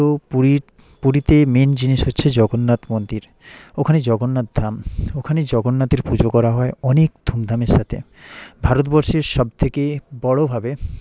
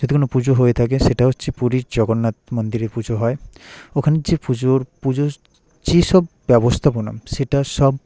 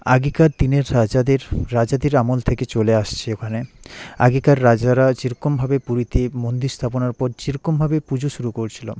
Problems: constant background noise